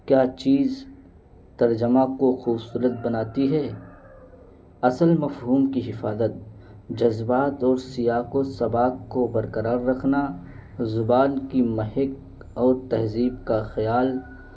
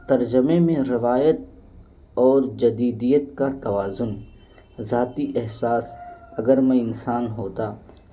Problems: none marked